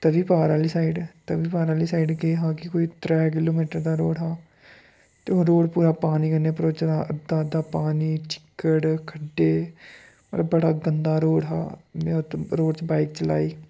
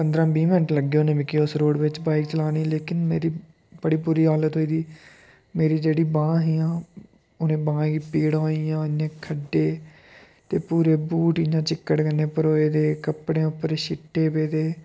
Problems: background sounds at intervals